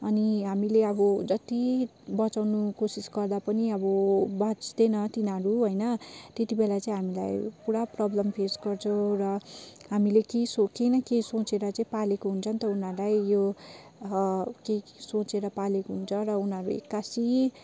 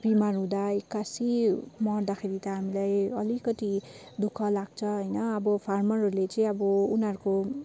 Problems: none marked